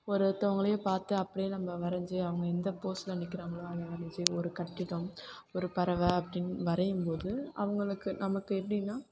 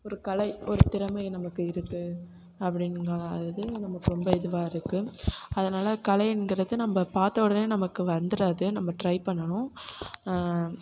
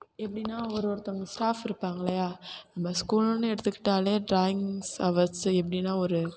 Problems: background sounds at intervals